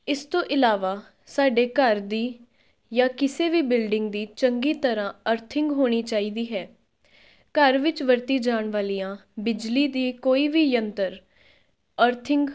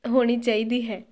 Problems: background sounds at intervals